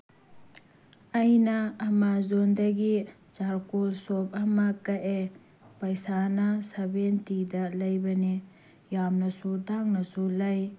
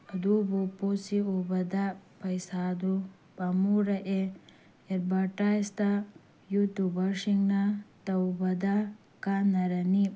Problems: none marked